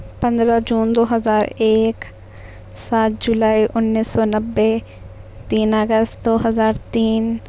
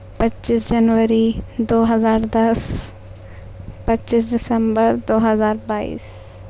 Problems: none marked